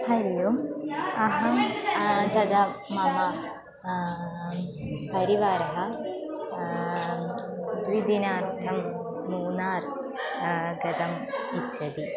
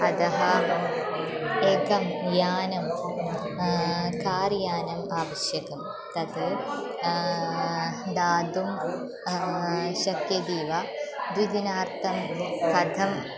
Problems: continuous background conversations